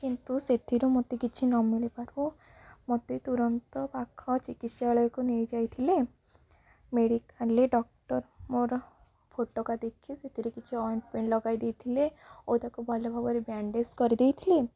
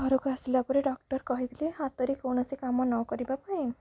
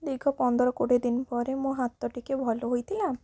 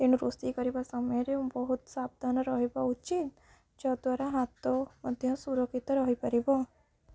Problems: low volume